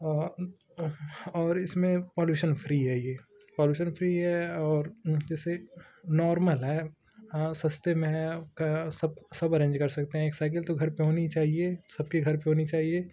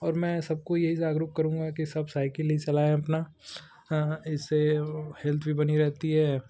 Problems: constant background noise